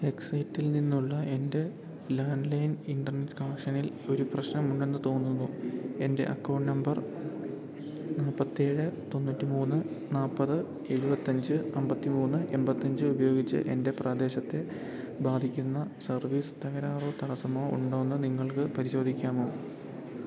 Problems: background sounds at intervals